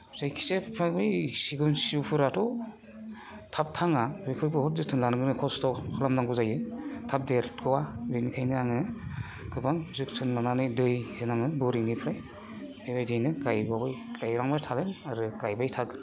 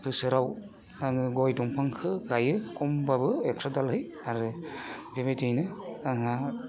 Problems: constant background noise